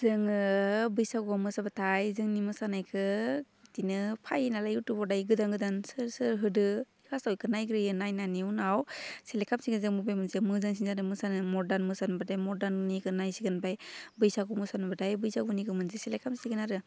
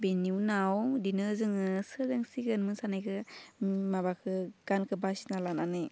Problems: none marked